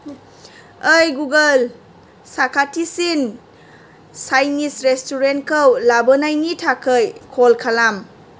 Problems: constant background noise